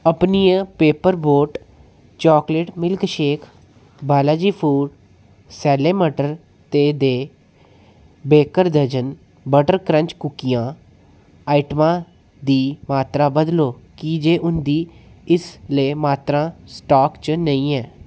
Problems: none marked